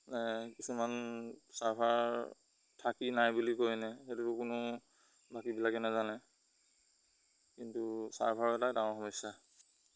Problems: background sounds at intervals